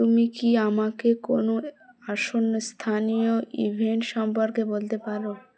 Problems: continuous background conversations